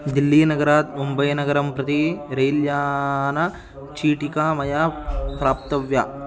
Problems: constant background noise, continuous background conversations